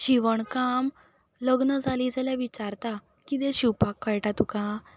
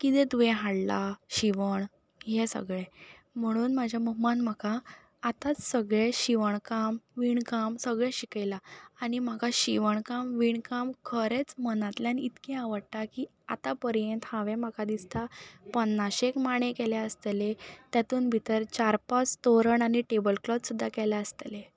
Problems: none marked